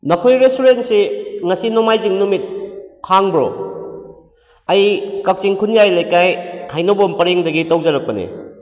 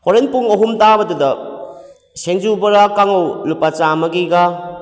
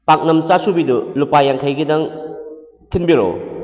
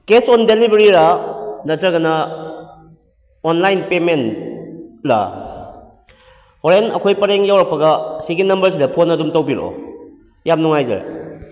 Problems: echo